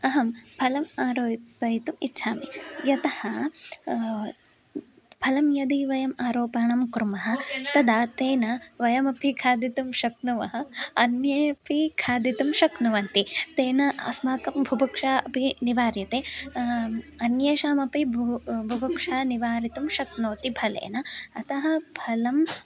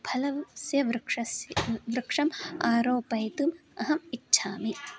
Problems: continuous background conversations